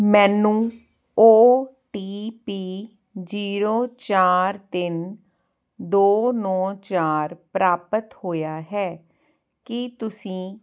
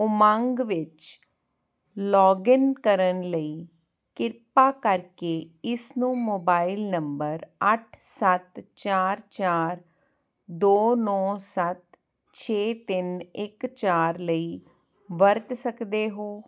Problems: none marked